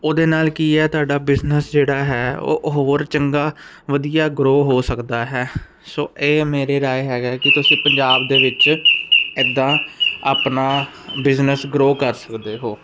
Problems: constant background noise